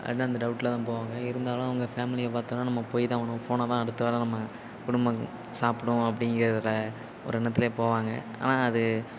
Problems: constant background noise